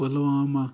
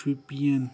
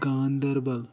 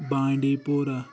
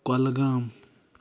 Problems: background sounds at intervals, background conversations at intervals